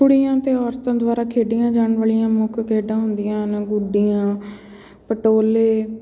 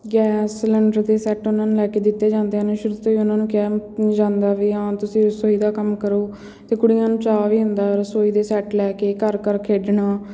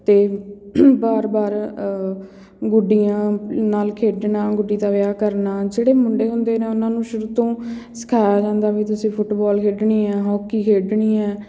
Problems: background sounds at intervals